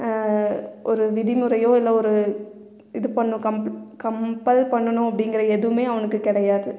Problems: none marked